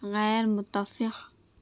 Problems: constant background noise, low volume